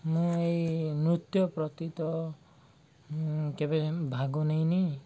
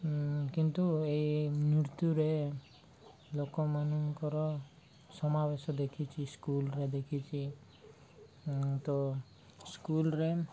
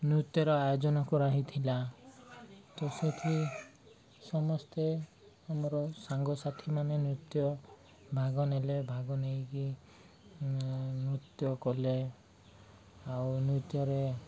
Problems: none marked